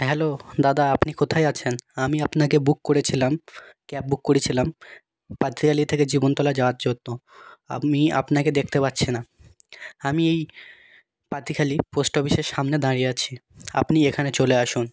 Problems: background sounds at intervals